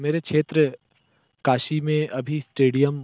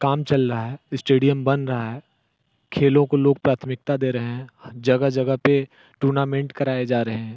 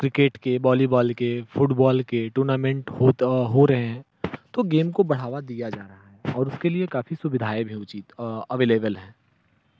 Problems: background sounds at intervals